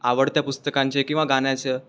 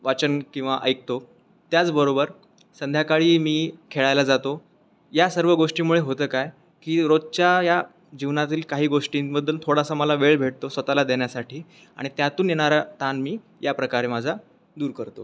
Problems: constant background noise